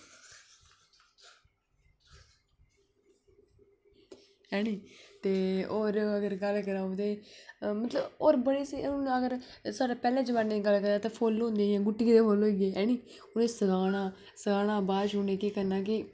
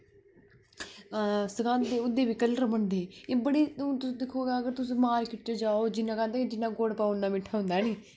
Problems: background conversations at intervals